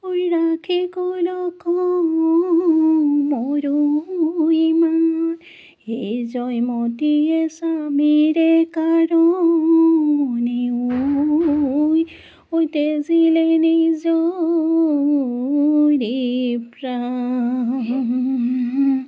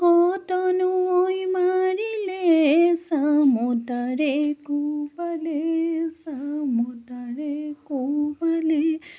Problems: background sounds at intervals